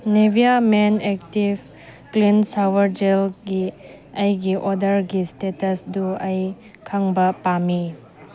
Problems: constant background noise